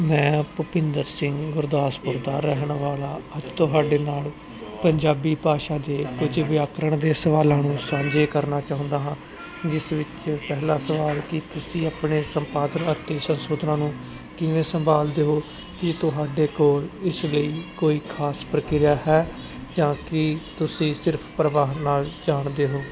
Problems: constant background noise, background conversations at intervals